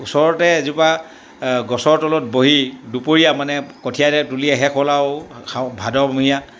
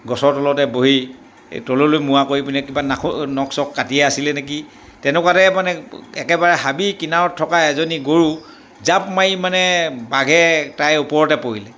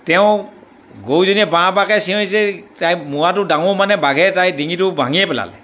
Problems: background sounds at intervals